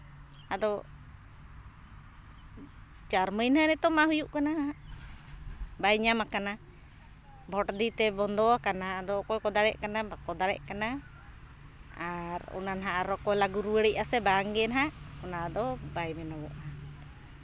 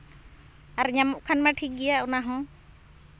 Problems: none marked